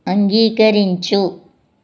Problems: none marked